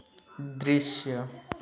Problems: none marked